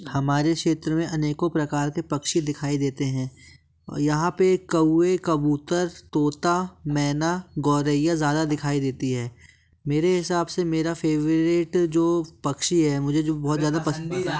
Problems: constant background noise